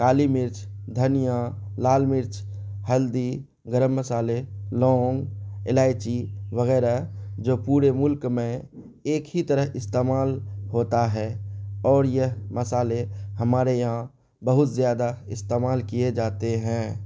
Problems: none marked